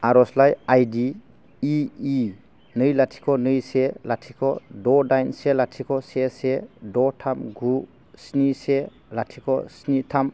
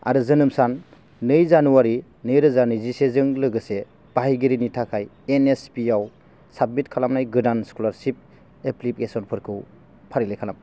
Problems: none marked